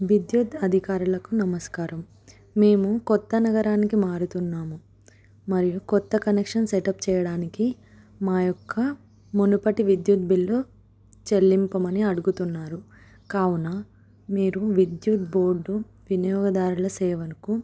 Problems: none marked